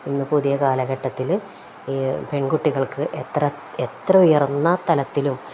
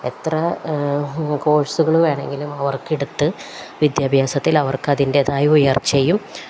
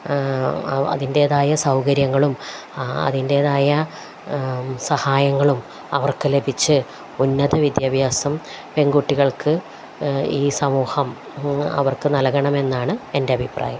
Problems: none marked